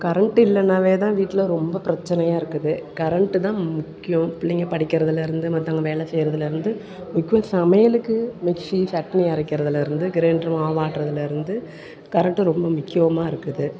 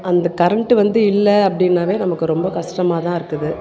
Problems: background conversations at intervals